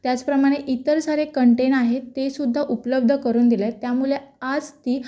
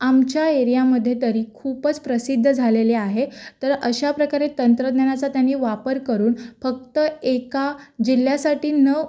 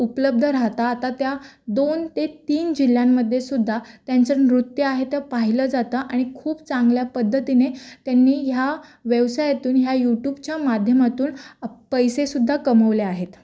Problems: background conversations at intervals